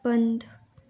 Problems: none marked